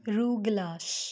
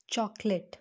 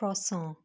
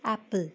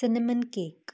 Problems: constant background noise